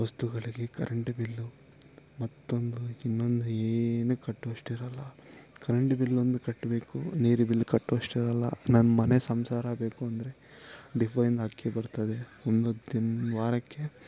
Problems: low volume